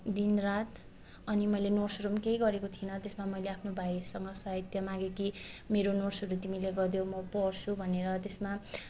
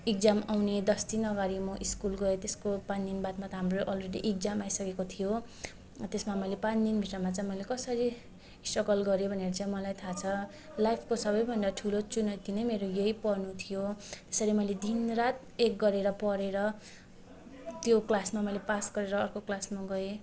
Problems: none marked